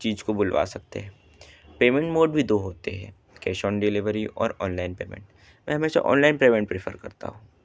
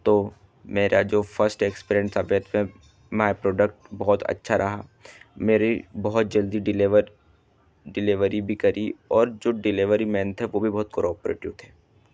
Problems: background sounds at intervals